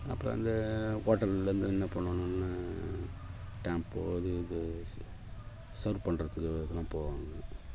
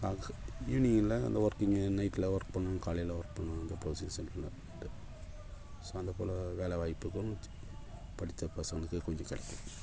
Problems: background sounds at intervals